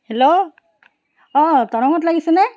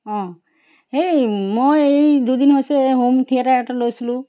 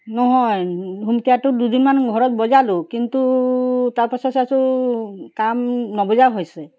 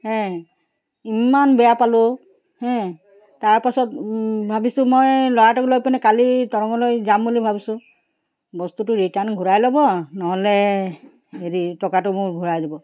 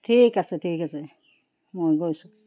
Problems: background sounds at intervals